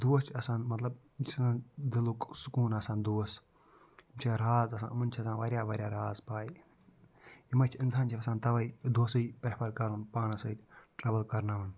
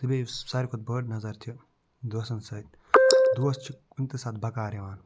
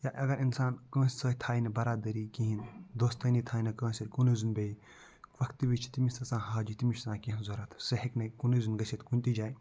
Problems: low volume